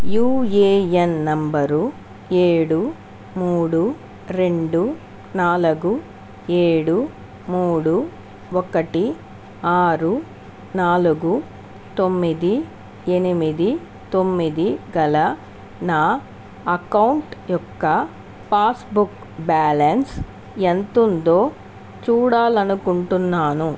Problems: constant background noise